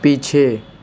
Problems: constant background noise